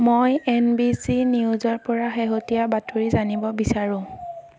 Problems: background sounds at intervals